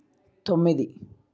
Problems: none marked